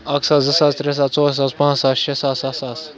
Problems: constant background noise